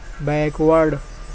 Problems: constant background noise